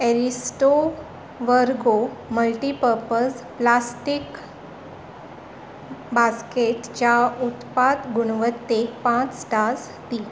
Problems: none marked